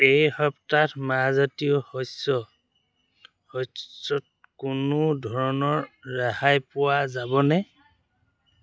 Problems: constant background noise